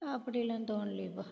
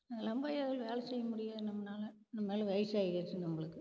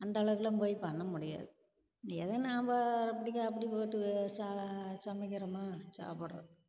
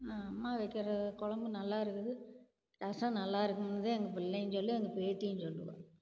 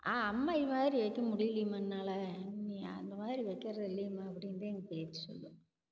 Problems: low volume